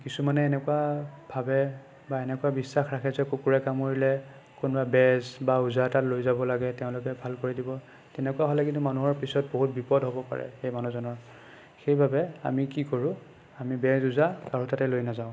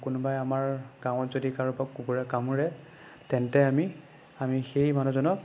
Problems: none marked